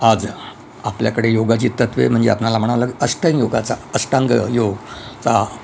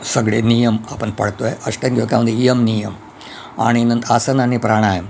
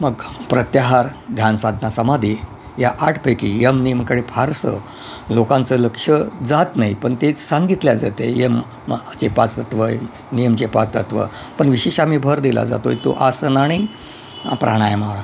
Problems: constant background noise